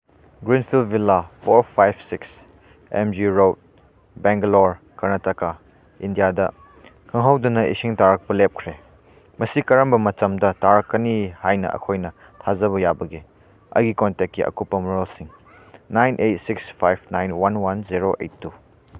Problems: background sounds at intervals